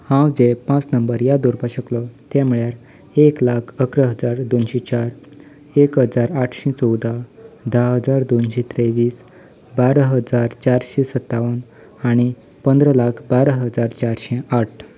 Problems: background sounds at intervals